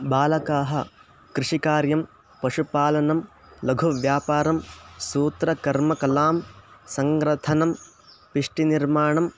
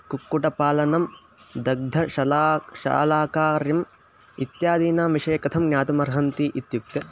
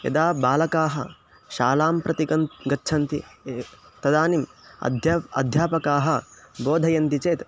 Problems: constant background noise